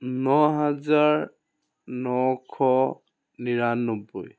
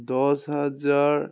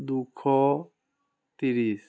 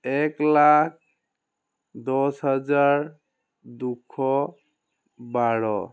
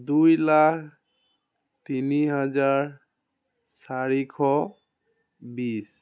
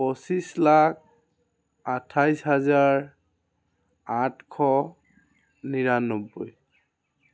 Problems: background conversations at intervals